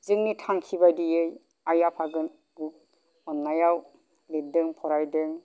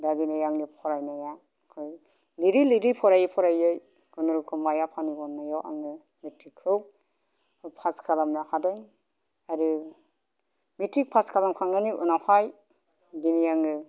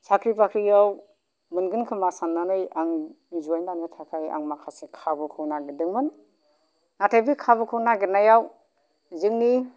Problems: low volume